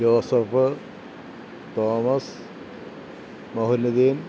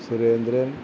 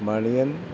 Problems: low volume